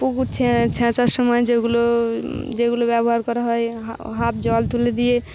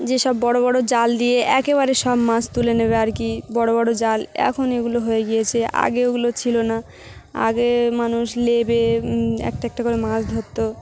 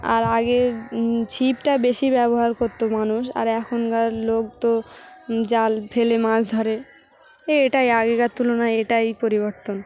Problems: constant background noise, continuous background conversations